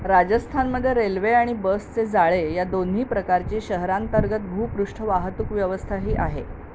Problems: none marked